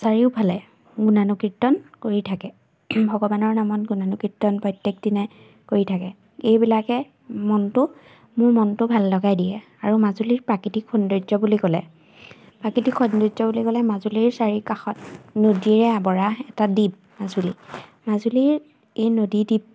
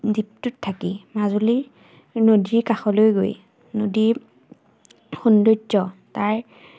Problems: none marked